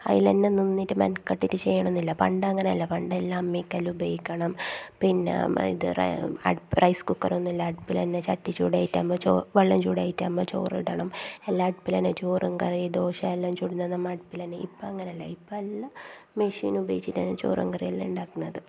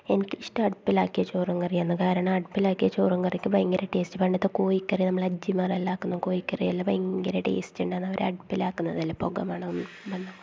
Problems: constant background noise, low volume